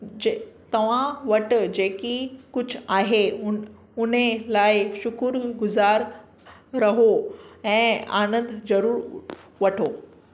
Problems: none marked